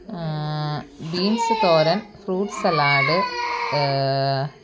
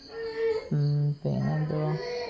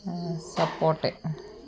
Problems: constant background noise